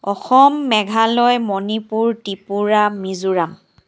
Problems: background sounds at intervals